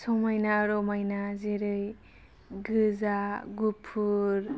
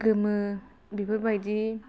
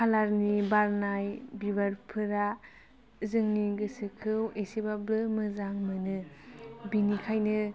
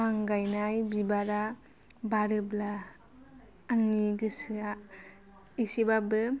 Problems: none marked